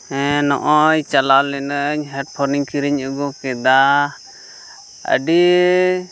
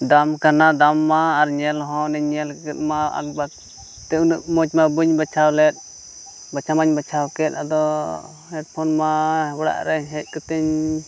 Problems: background sounds at intervals